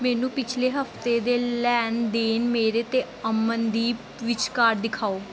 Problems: none marked